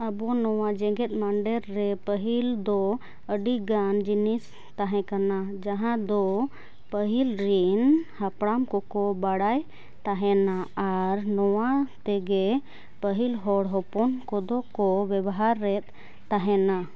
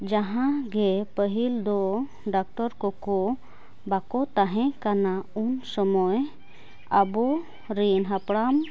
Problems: background sounds at intervals